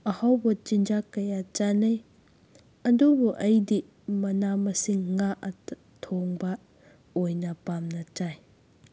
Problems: none marked